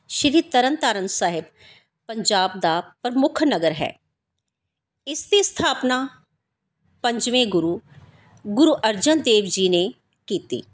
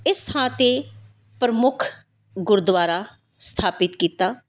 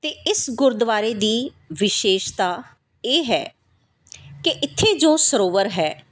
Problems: background sounds at intervals